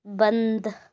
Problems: none marked